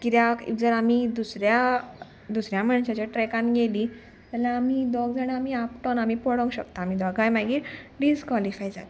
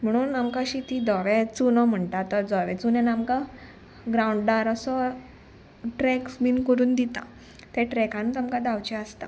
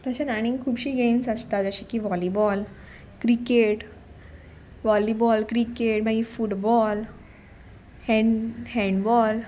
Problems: background sounds at intervals